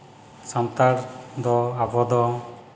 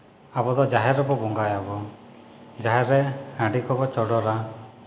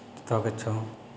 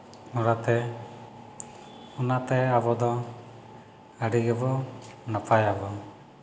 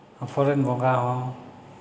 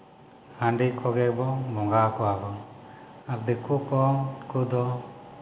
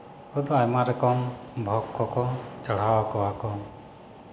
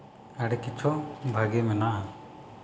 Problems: none marked